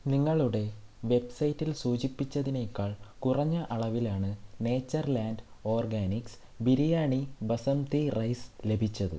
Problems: low volume